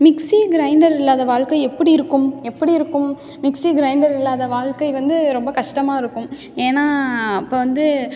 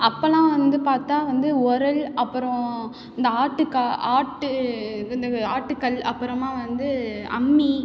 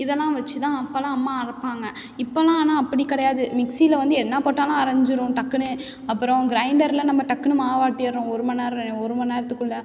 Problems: background sounds at intervals